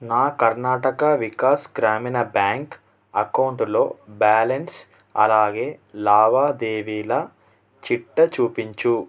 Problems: none marked